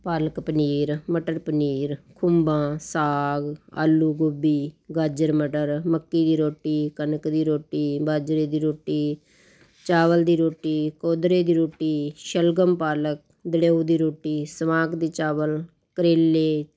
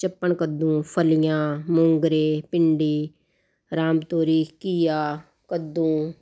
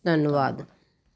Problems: constant background noise